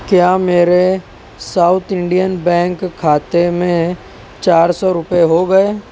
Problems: constant background noise